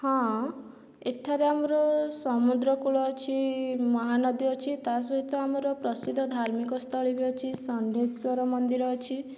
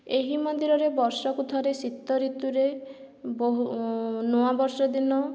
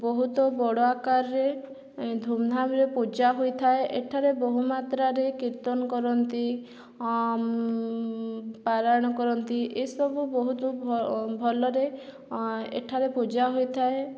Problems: none marked